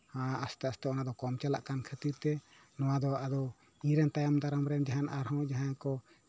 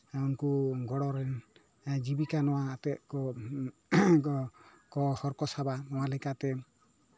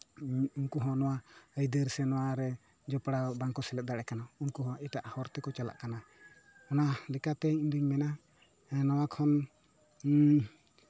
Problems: background sounds at intervals